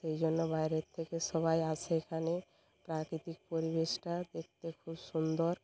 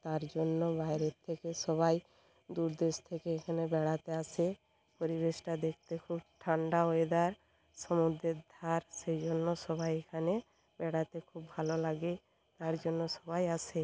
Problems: background sounds at intervals